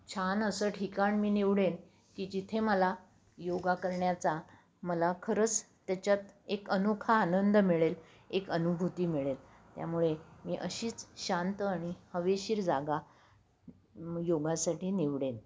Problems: none marked